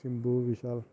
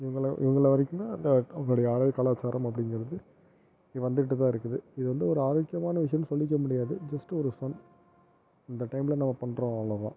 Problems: low volume